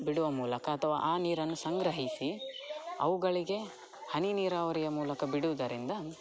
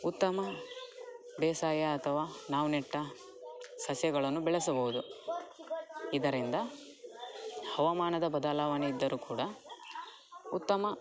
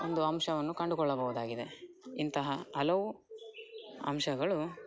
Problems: background sounds at intervals, background conversations at intervals